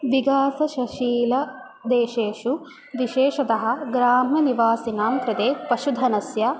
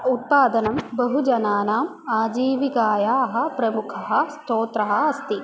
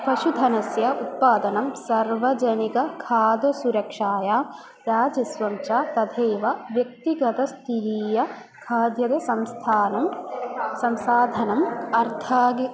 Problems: none marked